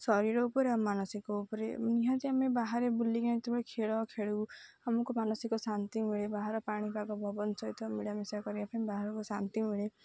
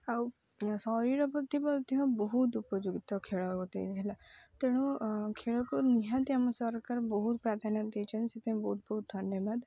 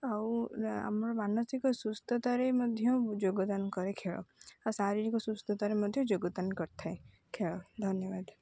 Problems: low volume